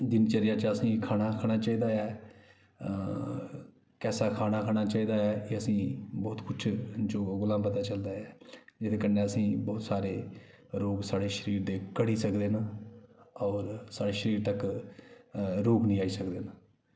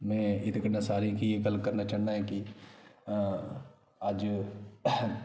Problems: background sounds at intervals, echo